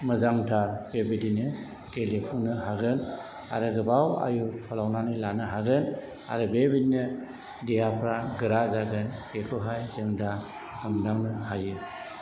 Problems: background sounds at intervals, background conversations at intervals